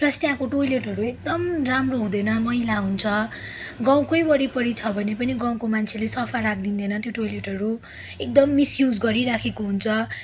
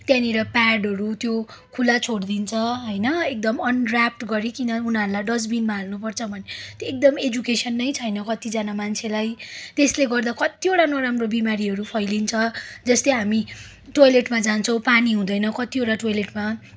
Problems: background sounds at intervals